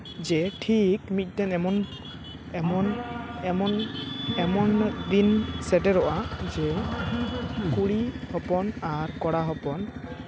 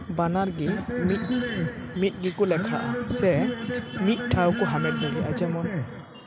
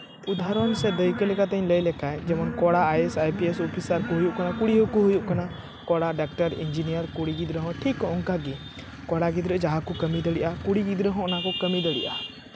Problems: constant background noise, background conversations at intervals